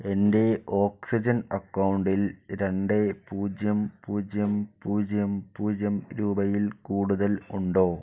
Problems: low volume